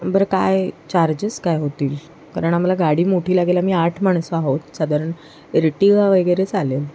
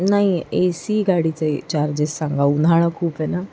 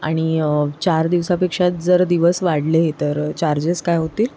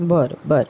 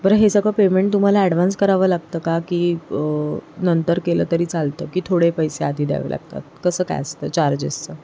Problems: constant background noise